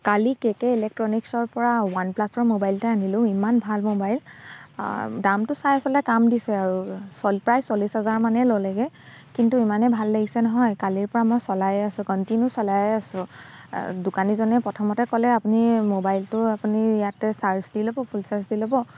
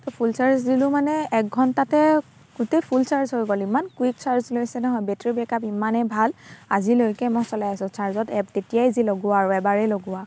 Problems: constant background noise